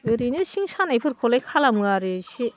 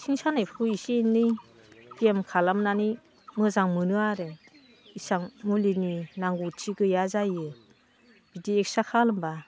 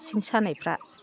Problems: constant background noise